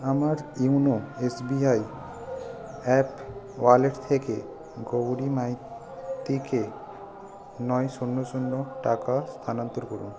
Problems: constant background noise